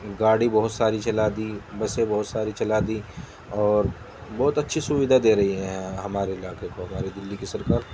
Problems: constant background noise